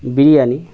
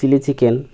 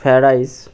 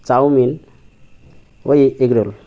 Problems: constant background noise